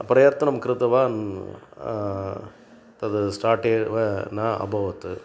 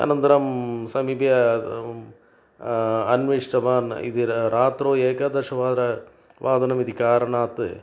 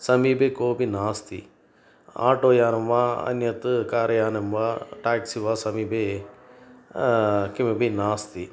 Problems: none marked